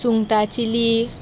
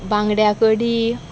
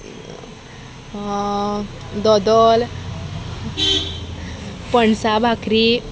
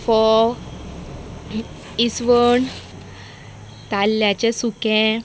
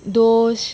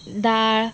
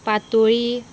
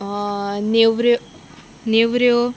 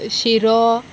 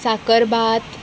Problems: constant background noise